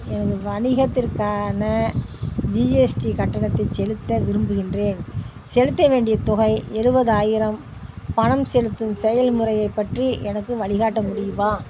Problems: constant background noise, background conversations at intervals